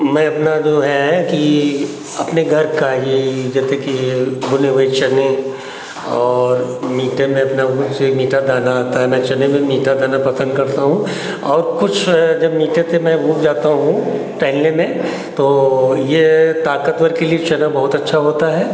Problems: none marked